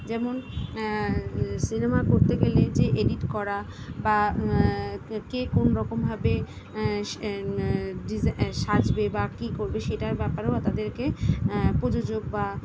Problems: none marked